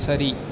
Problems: constant background noise